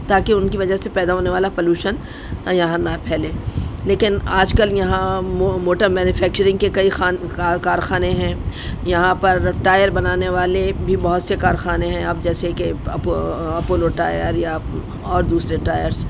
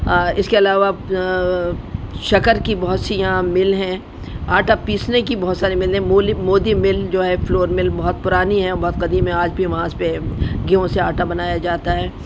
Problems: constant background noise